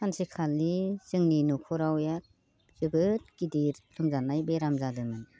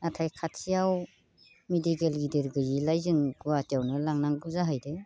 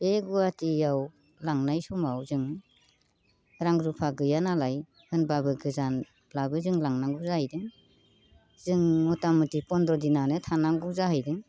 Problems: constant background noise